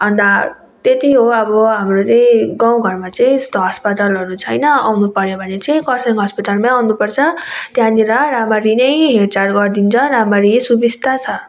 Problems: none marked